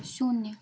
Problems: none marked